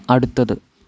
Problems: background sounds at intervals